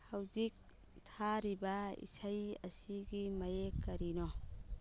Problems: background sounds at intervals